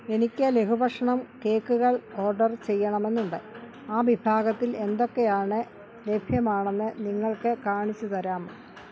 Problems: background sounds at intervals